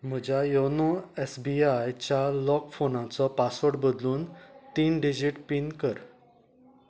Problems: none marked